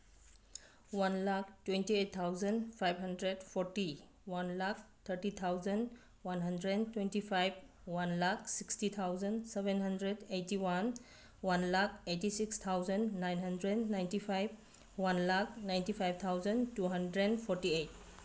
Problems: background sounds at intervals